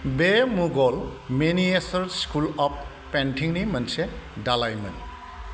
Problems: none marked